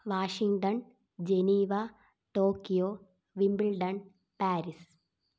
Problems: low volume